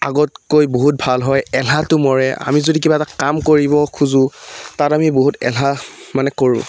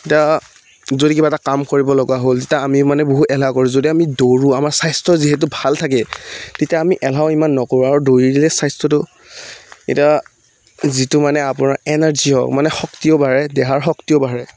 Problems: background sounds at intervals